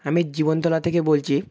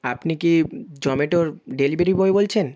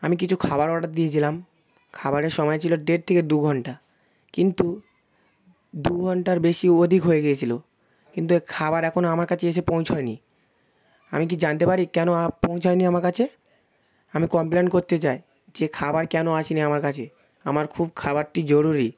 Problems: constant background noise, background conversations at intervals